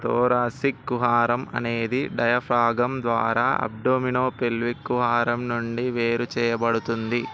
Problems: none marked